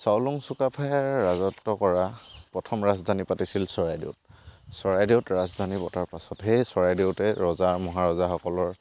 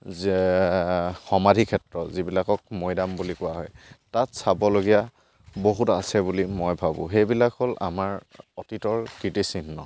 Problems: background sounds at intervals